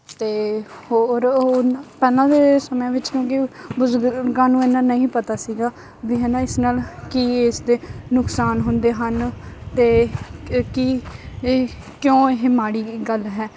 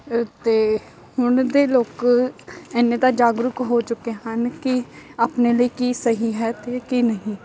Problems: none marked